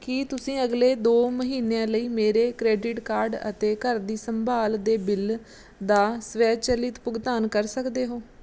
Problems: none marked